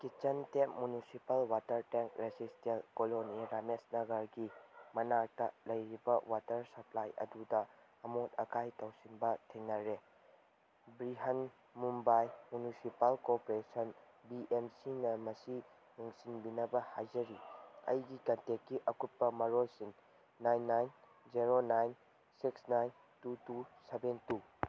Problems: none marked